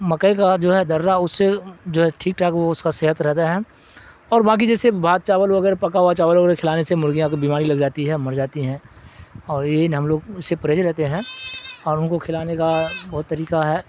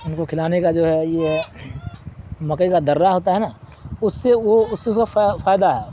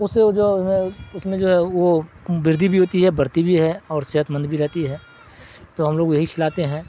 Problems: constant background noise